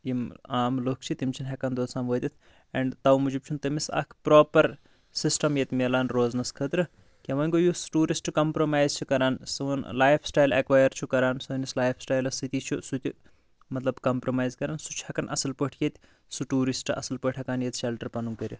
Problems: none marked